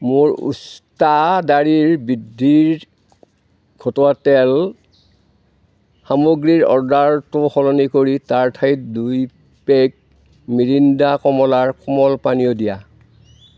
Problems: none marked